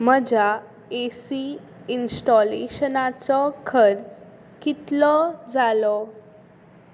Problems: none marked